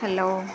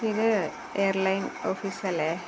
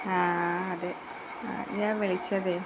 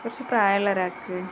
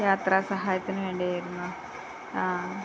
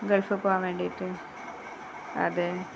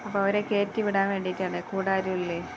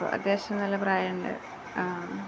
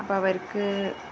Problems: constant background noise, low volume